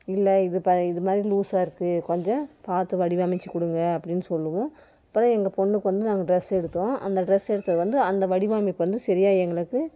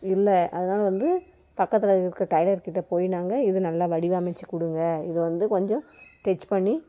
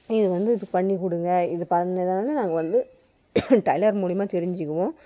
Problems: background sounds at intervals